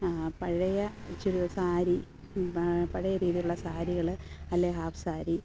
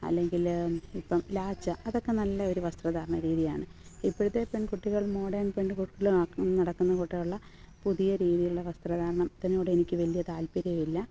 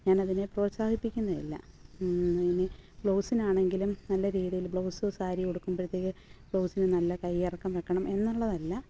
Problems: background sounds at intervals